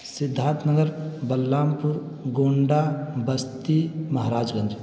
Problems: constant background noise